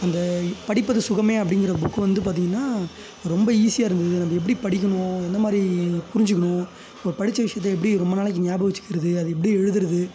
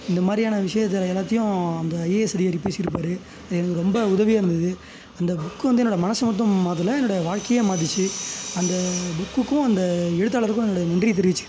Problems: background sounds at intervals